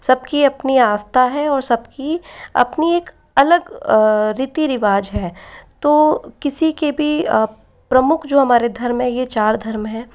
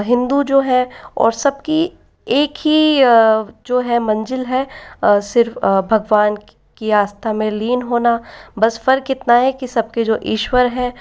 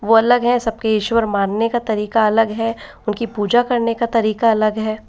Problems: echo